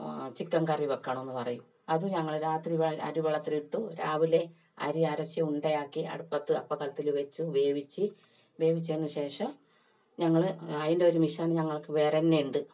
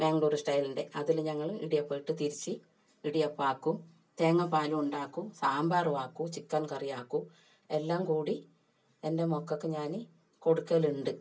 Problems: none marked